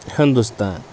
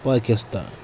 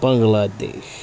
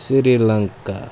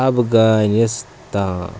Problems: constant background noise